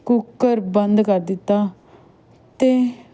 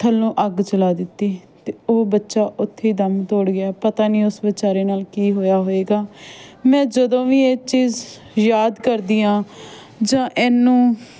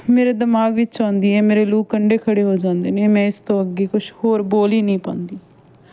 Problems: constant background noise